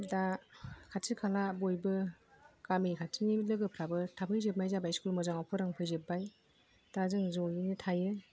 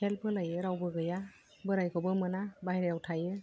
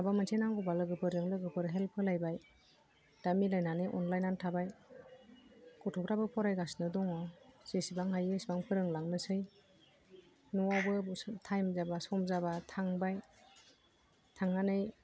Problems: low volume